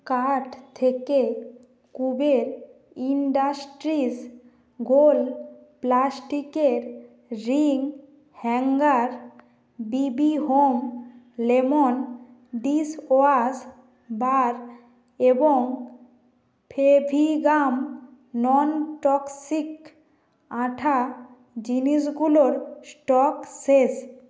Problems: constant background noise